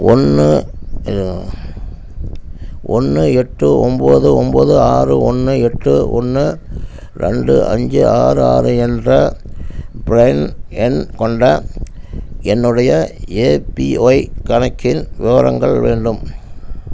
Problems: constant background noise